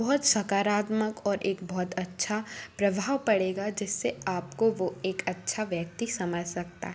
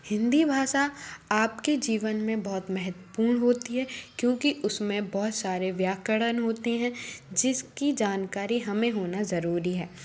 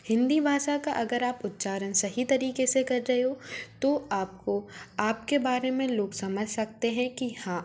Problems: constant background noise